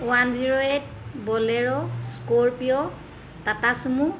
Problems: none marked